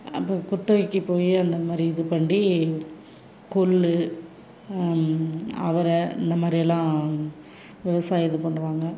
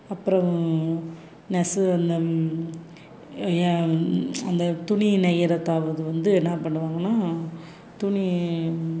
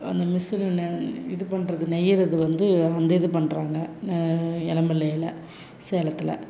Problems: none marked